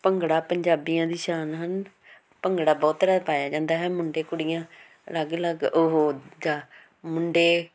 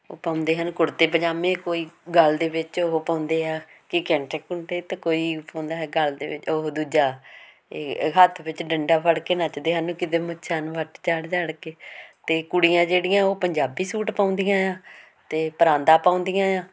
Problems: constant background noise